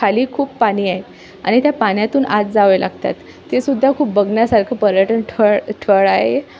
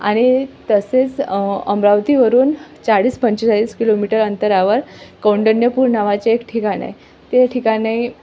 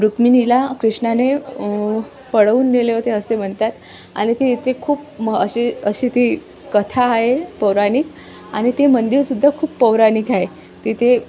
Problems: constant background noise, background conversations at intervals